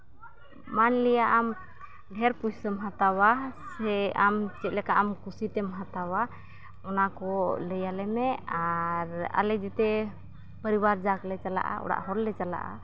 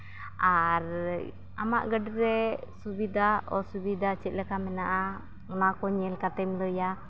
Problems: background sounds at intervals, continuous background conversations